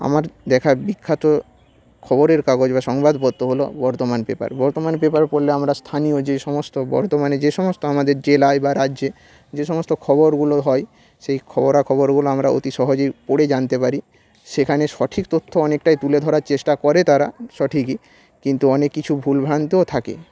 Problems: constant background noise